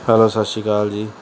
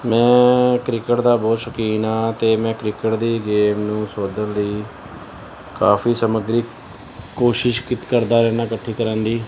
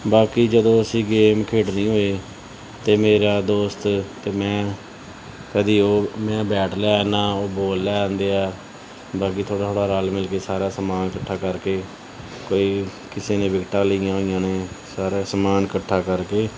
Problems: background sounds at intervals, background conversations at intervals